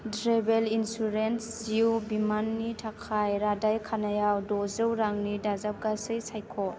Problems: none marked